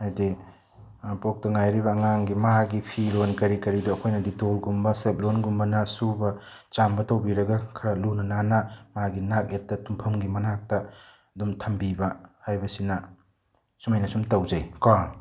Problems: none marked